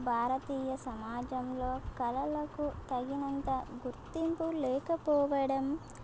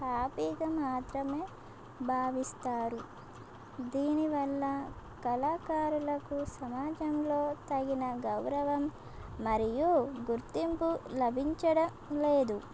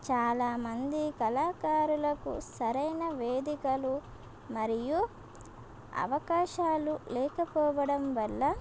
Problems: constant background noise